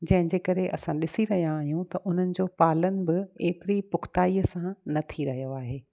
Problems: none marked